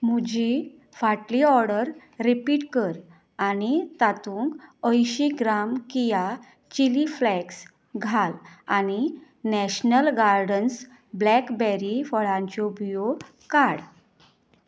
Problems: none marked